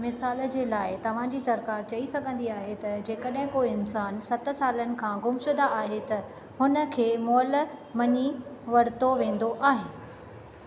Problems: none marked